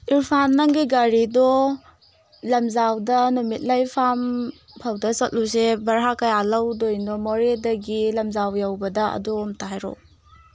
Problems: constant background noise